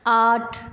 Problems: none marked